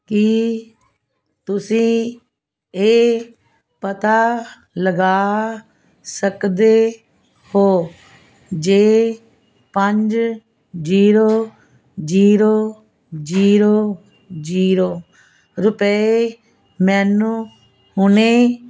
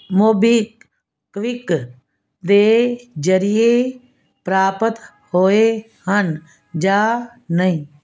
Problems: constant background noise